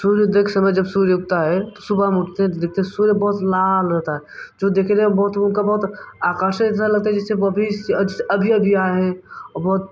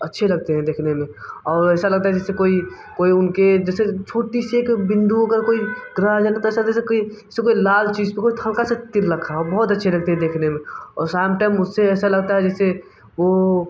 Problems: none marked